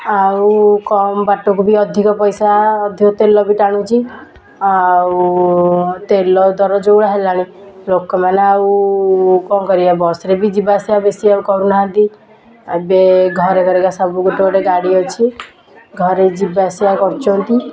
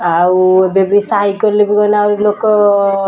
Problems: constant background noise